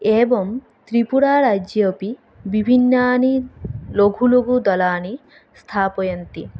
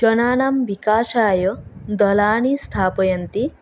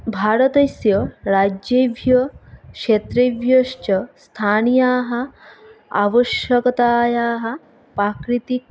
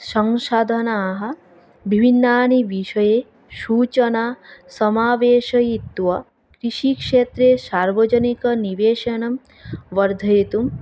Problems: none marked